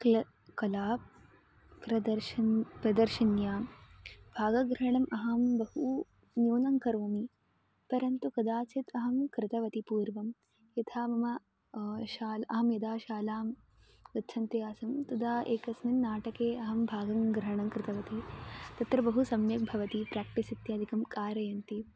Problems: constant background noise